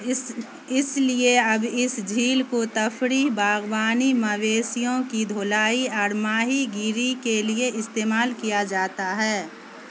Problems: constant background noise